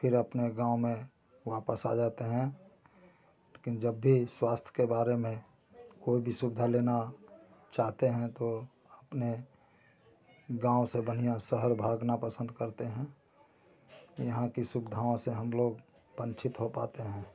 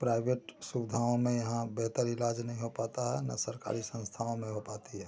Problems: continuous background conversations